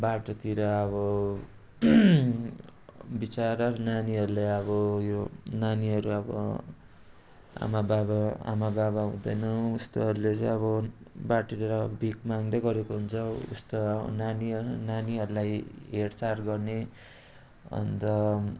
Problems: constant background noise